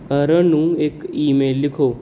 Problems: none marked